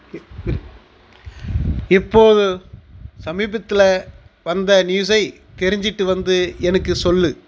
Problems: background conversations at intervals